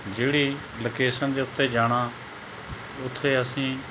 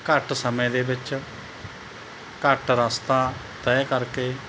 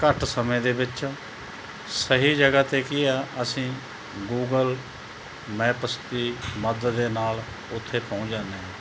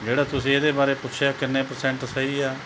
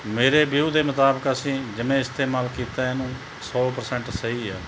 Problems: none marked